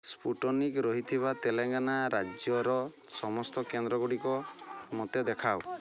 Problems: constant background noise